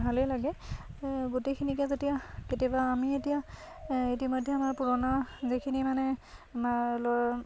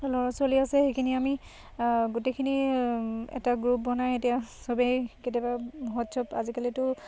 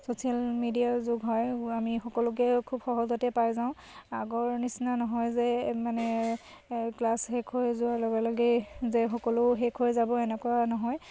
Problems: constant background noise